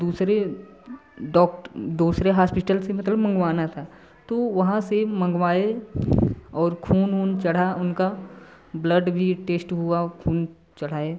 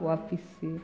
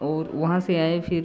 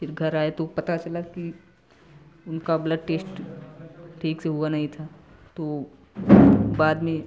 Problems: constant background noise, continuous background conversations